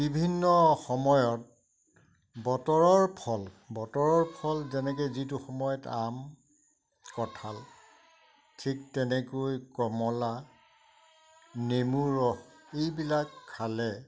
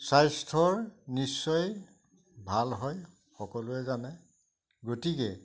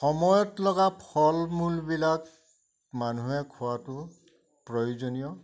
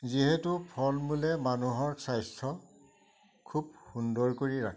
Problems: none marked